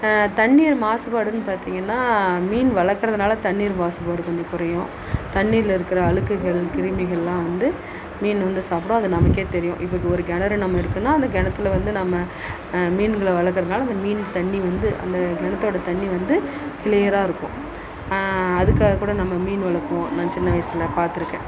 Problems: constant background noise